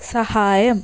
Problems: constant background noise